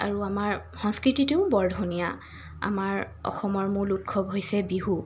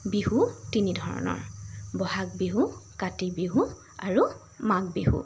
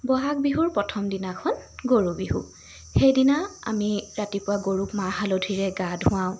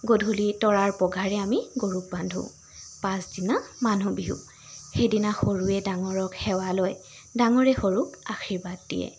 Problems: constant background noise